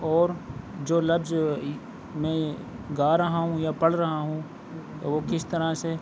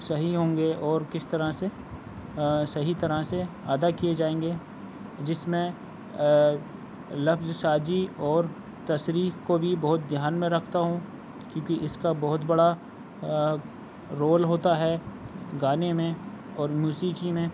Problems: constant background noise